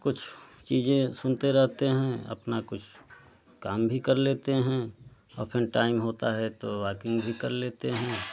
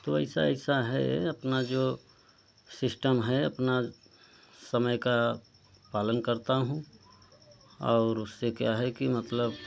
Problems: constant background noise